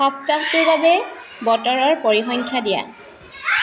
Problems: constant background noise